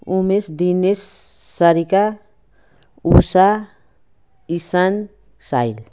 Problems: none marked